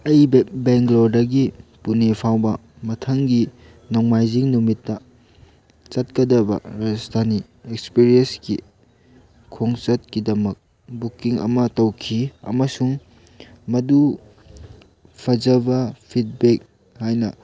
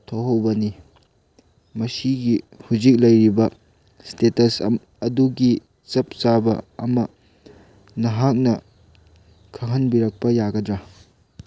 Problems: none marked